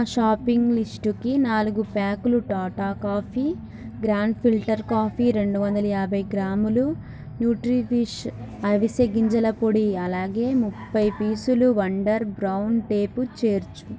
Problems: background conversations at intervals